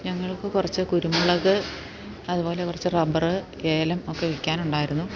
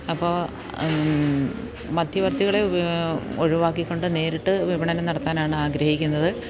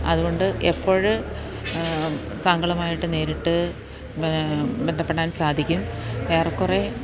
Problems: constant background noise